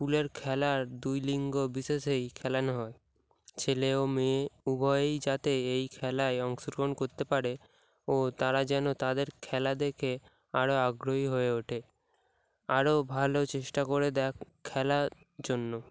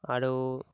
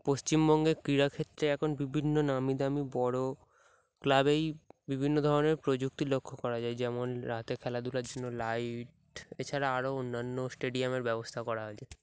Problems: none marked